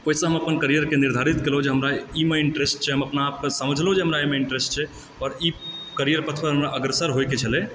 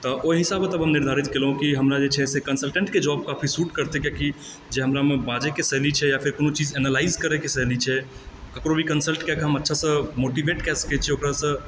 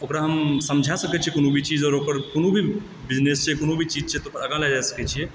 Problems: none marked